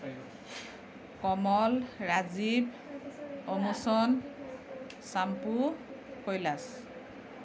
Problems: continuous background conversations